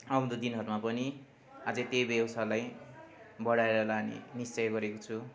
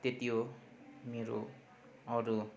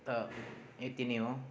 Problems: constant background noise